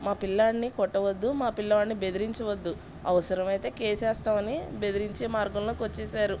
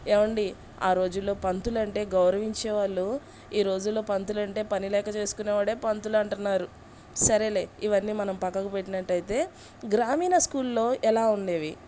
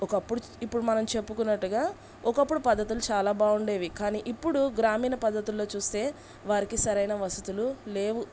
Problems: background sounds at intervals